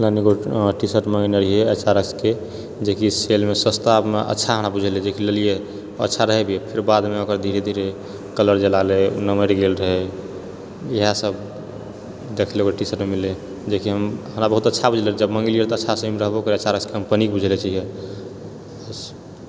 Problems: none marked